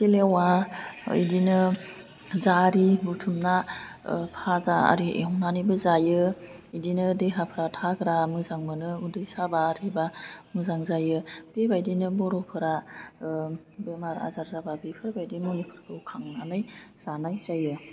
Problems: constant background noise